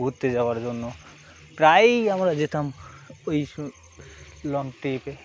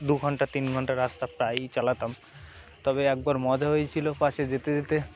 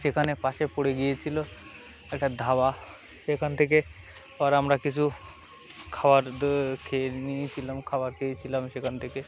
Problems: constant background noise